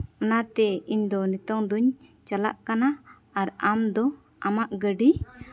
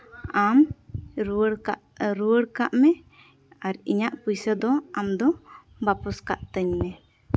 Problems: background sounds at intervals, background conversations at intervals